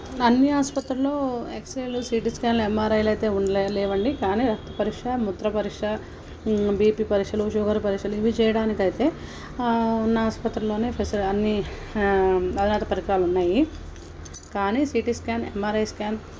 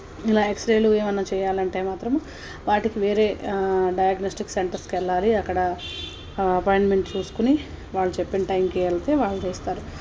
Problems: background sounds at intervals